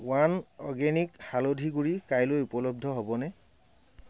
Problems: background sounds at intervals